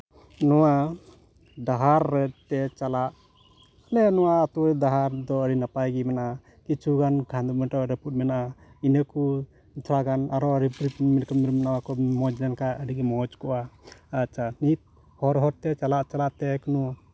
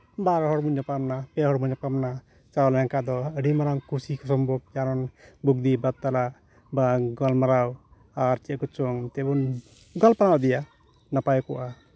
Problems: background sounds at intervals, background conversations at intervals